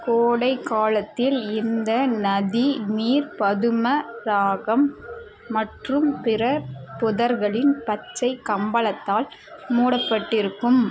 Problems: constant background noise